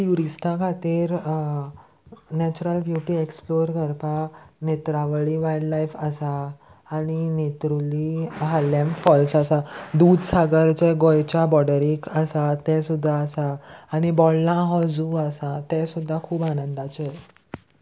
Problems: constant background noise